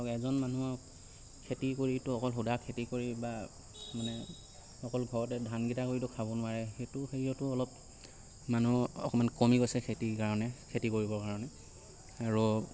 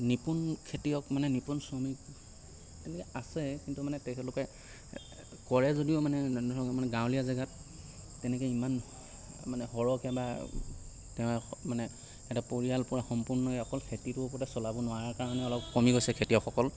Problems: constant background noise